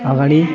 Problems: continuous background conversations